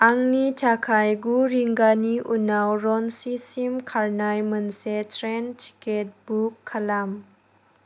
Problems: none marked